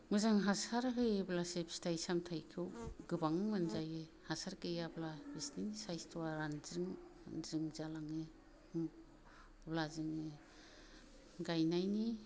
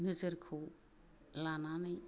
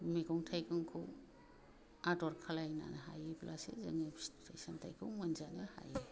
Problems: low volume